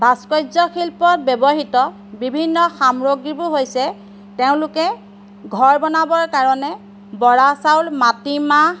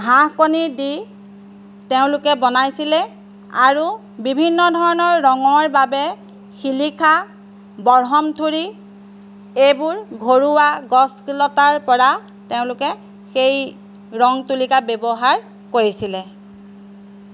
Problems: background sounds at intervals